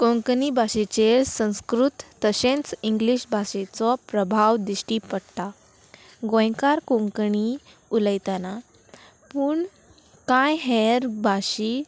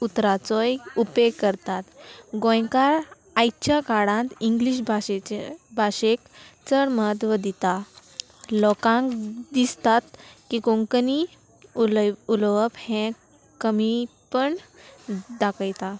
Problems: none marked